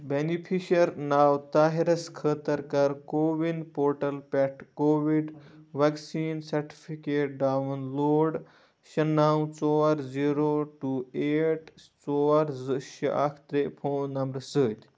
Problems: low volume